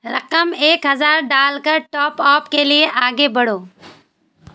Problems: constant background noise